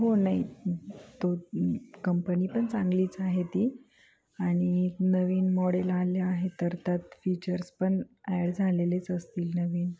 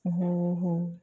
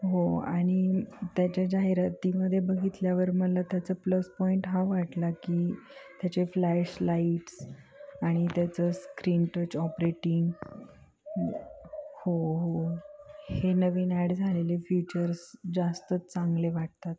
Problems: background sounds at intervals, background conversations at intervals